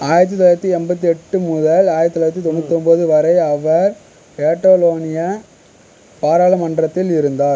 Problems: constant background noise